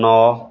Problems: constant background noise, continuous background conversations